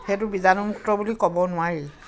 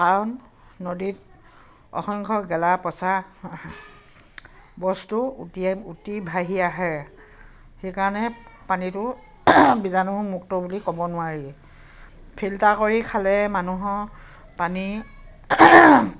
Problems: constant background noise, background conversations at intervals